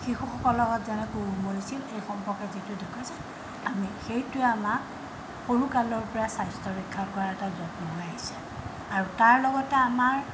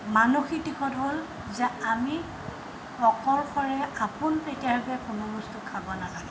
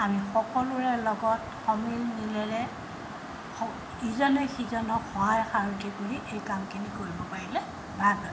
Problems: background sounds at intervals